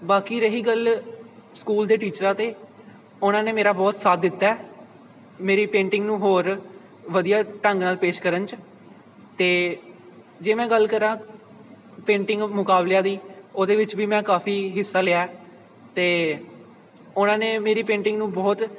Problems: constant background noise